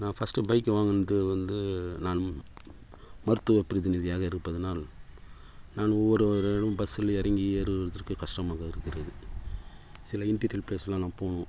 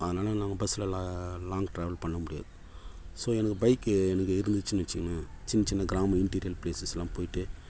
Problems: none marked